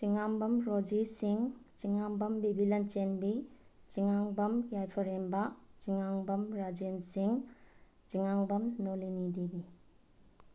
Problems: background sounds at intervals, low volume